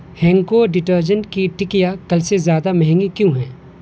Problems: constant background noise